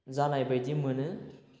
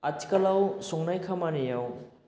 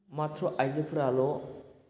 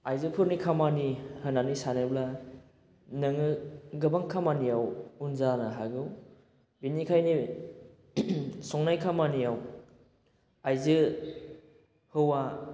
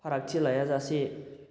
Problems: constant background noise